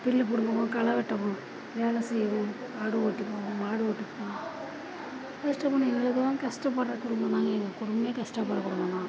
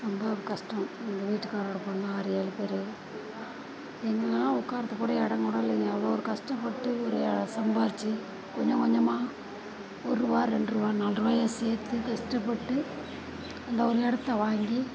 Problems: constant background noise